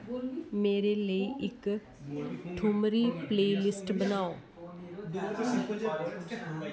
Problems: constant background noise